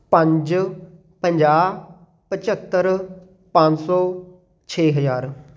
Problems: none marked